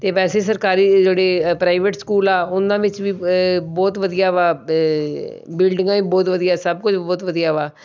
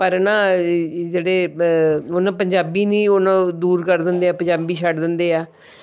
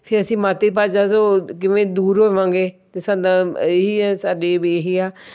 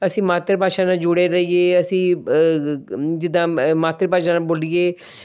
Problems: none marked